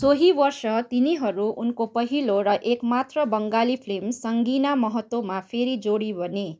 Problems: none marked